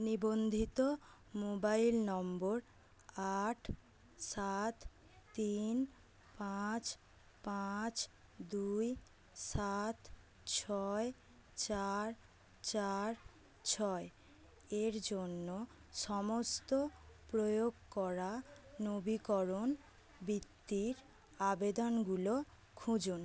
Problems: none marked